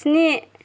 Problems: constant background noise